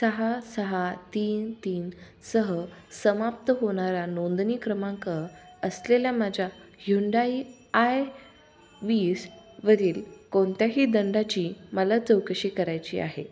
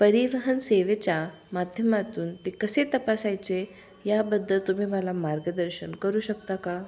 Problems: constant background noise